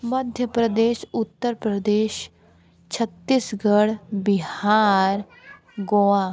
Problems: none marked